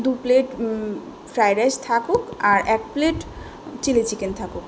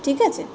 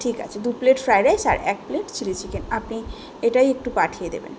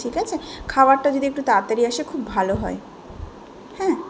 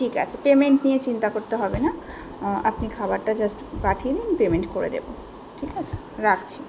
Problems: background sounds at intervals, background conversations at intervals